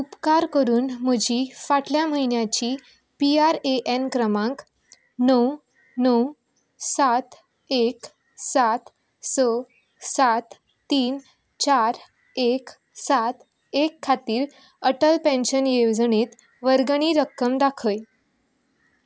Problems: background sounds at intervals